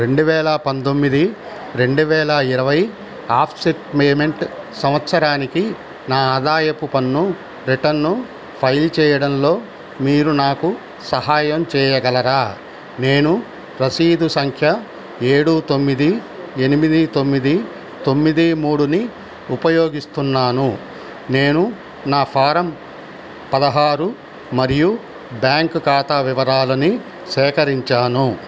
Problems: constant background noise